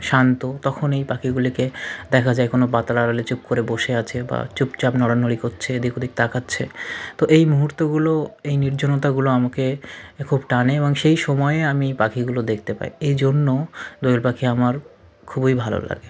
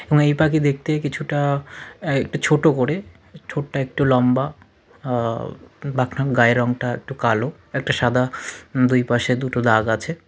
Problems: constant background noise, continuous background conversations